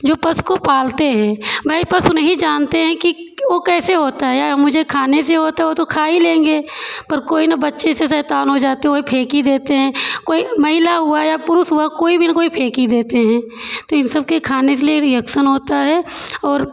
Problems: constant background noise